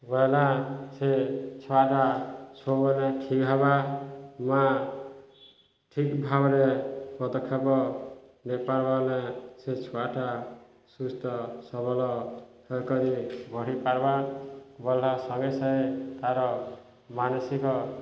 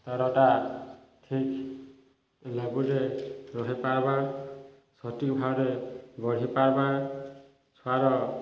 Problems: none marked